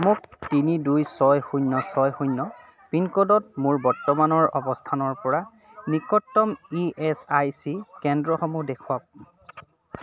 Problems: none marked